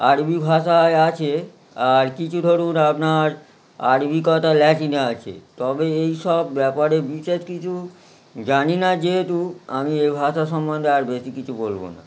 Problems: none marked